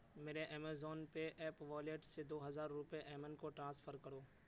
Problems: constant background noise